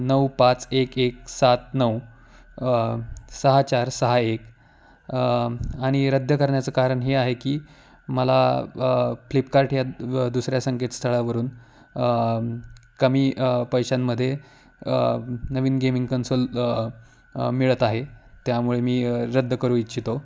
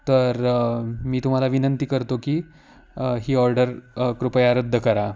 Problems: constant background noise